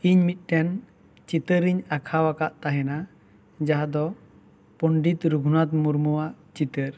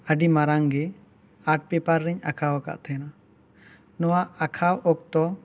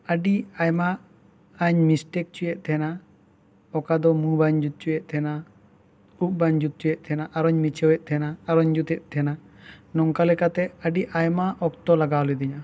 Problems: background sounds at intervals